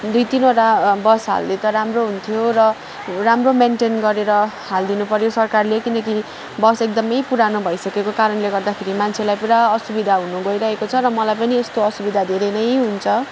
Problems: constant background noise, background conversations at intervals